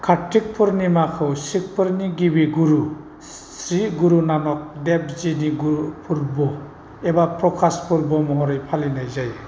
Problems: constant background noise